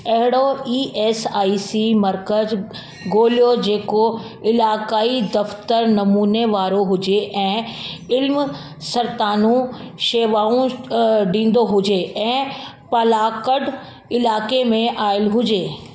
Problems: constant background noise, echo